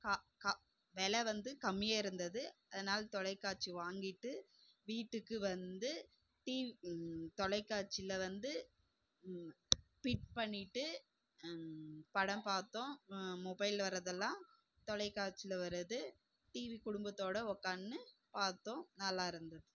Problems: low volume